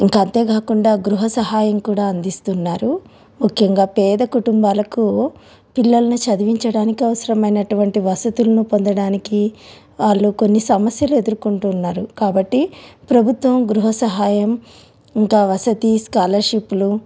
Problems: background sounds at intervals